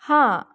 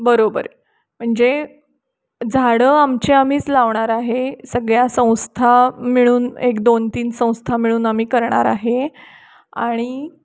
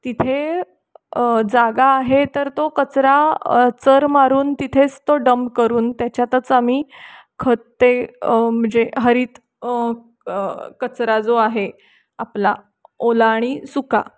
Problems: none marked